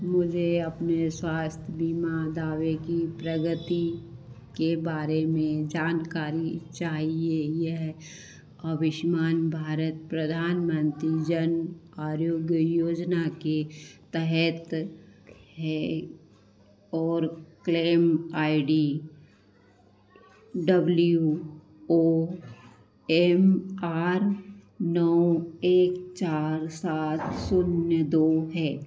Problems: constant background noise, echo